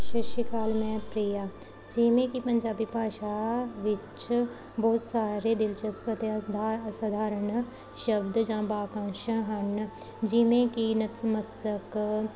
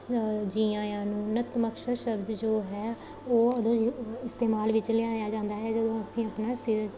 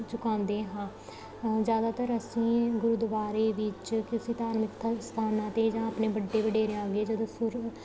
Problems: constant background noise